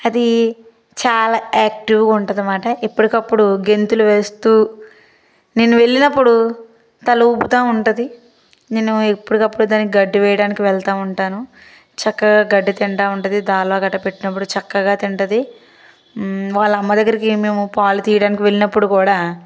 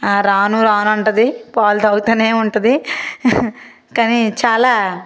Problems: constant background noise